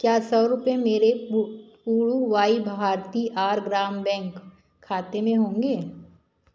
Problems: background sounds at intervals